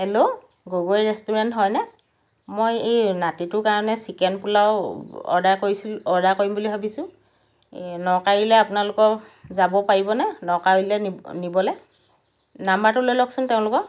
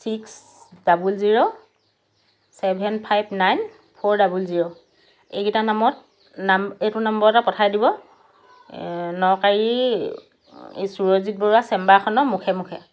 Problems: background sounds at intervals